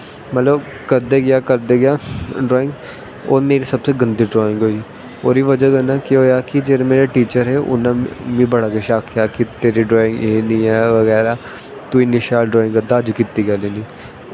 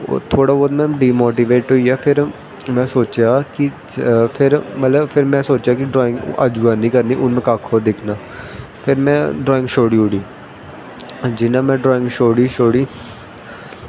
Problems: constant background noise